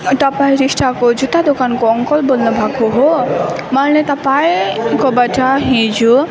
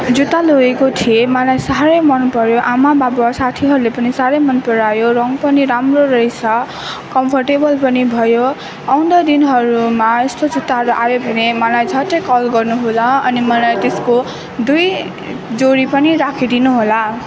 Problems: background sounds at intervals, background conversations at intervals